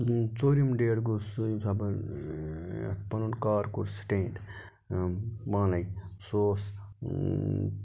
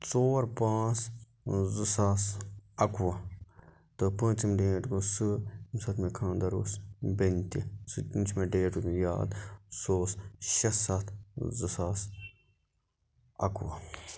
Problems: constant background noise